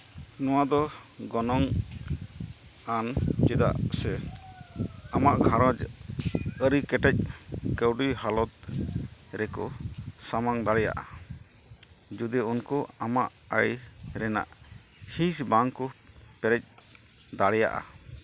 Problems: constant background noise